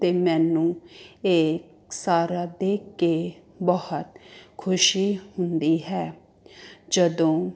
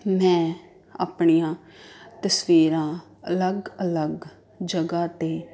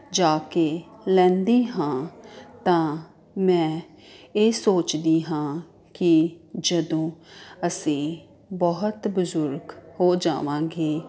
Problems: constant background noise